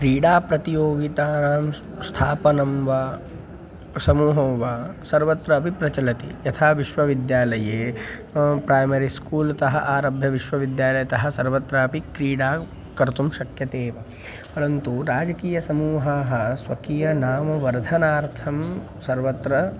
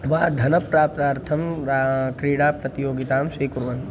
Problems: constant background noise